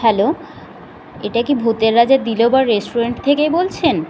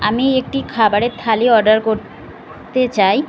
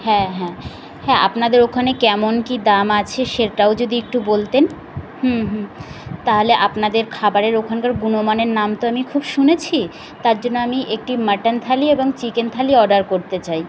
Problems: constant background noise, background conversations at intervals